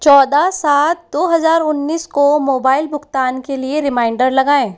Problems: background sounds at intervals